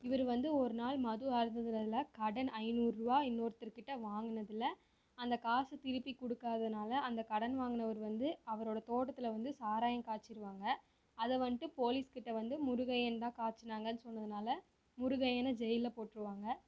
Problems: low volume